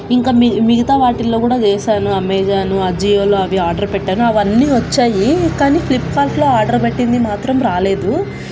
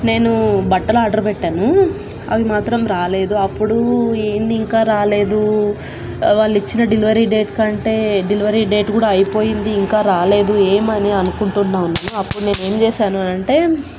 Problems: constant background noise